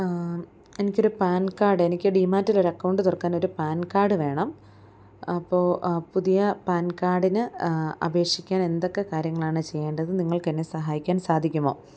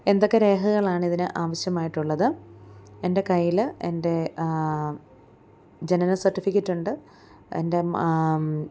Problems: none marked